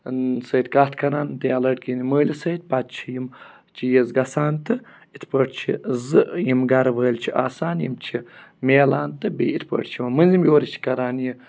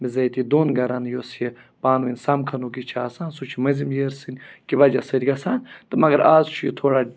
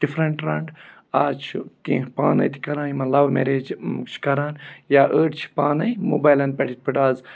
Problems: none marked